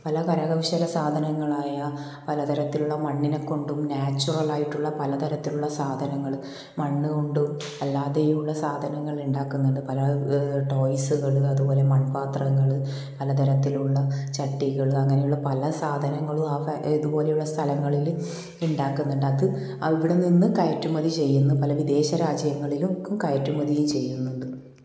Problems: none marked